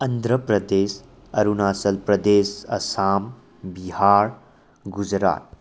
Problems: background sounds at intervals